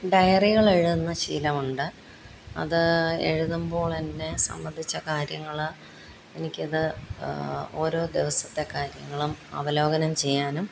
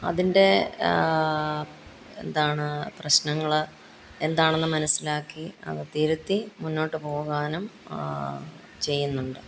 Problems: background sounds at intervals